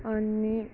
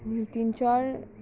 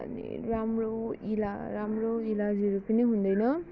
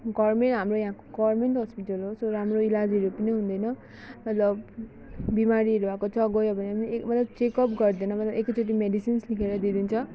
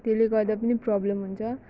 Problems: background sounds at intervals